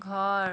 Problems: constant background noise